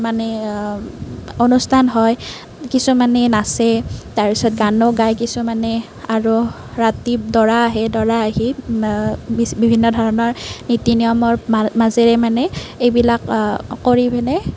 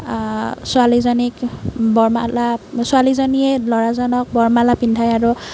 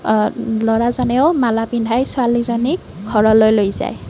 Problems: background sounds at intervals